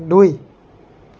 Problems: none marked